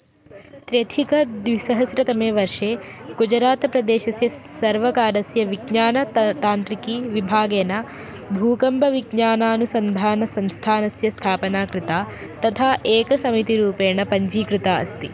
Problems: constant background noise